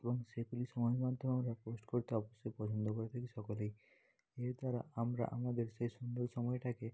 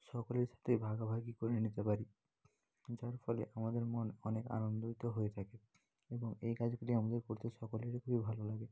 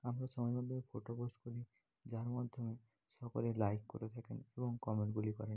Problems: continuous background conversations, low volume